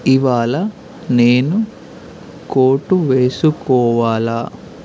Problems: constant background noise